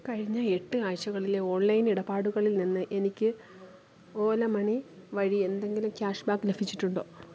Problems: constant background noise